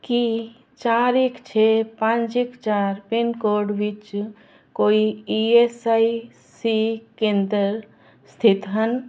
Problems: none marked